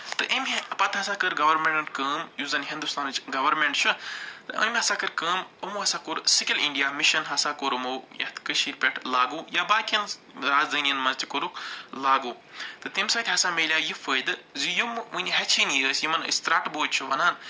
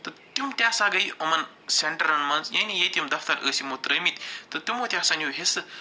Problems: none marked